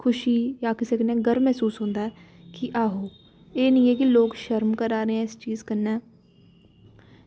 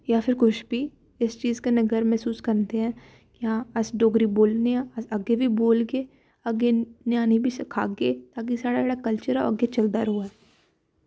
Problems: background sounds at intervals